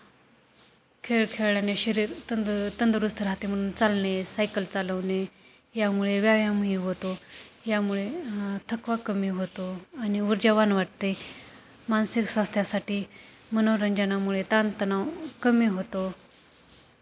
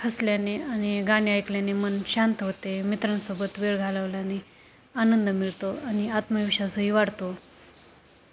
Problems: constant background noise, background conversations at intervals